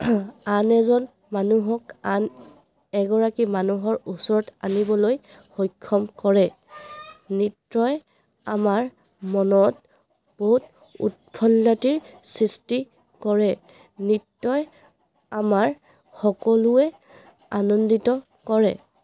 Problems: background sounds at intervals